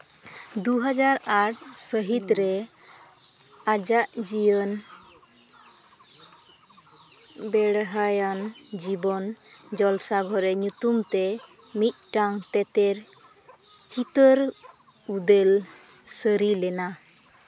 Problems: none marked